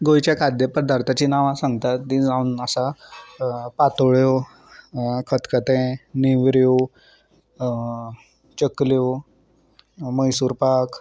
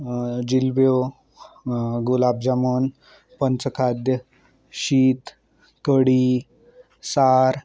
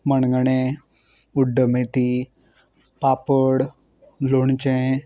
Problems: none marked